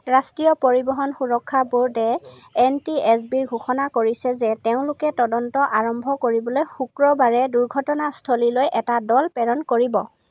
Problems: constant background noise, background conversations at intervals